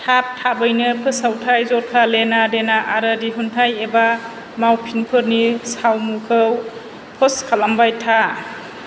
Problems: constant background noise